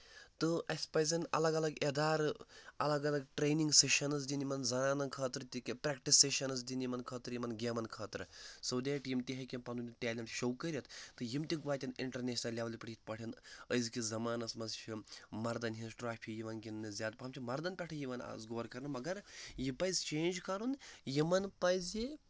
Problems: none marked